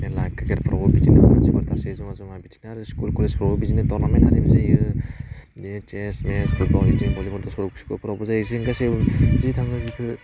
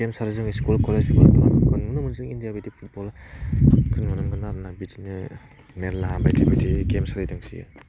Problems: low volume